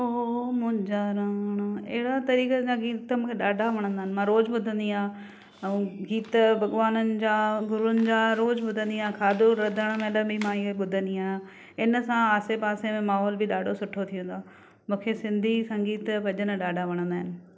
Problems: none marked